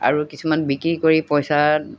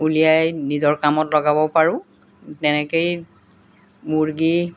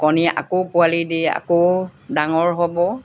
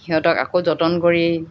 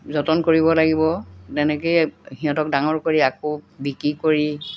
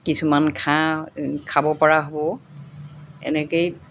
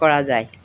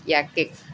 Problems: constant background noise